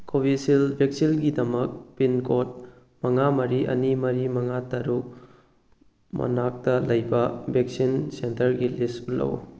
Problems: none marked